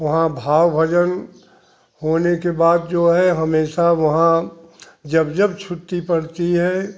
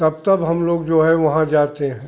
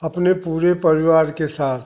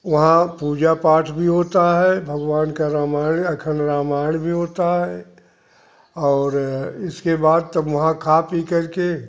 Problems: background sounds at intervals